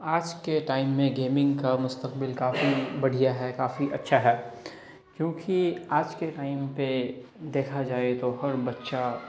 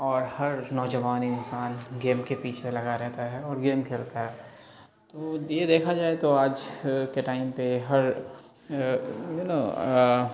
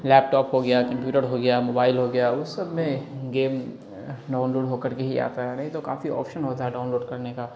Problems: background sounds at intervals, background conversations at intervals